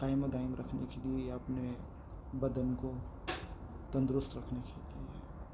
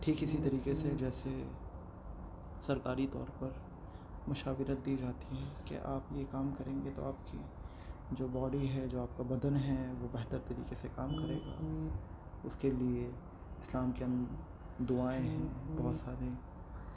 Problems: constant background noise